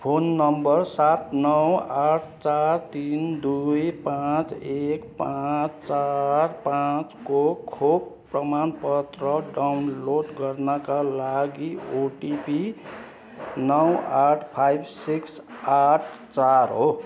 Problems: constant background noise, continuous background conversations